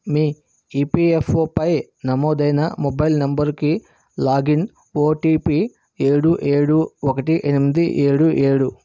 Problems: constant background noise